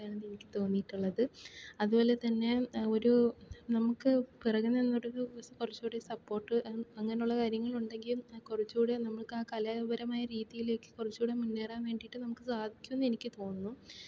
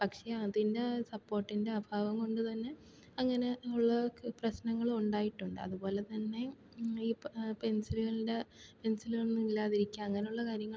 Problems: low volume